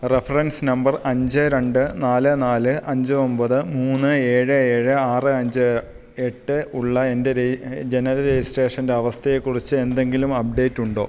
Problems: none marked